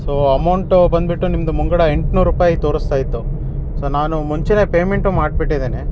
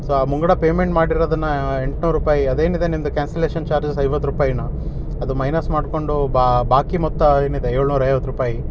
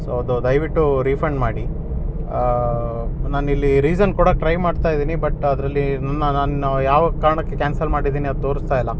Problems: none marked